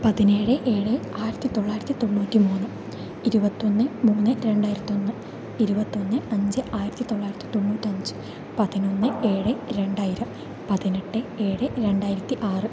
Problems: constant background noise, low volume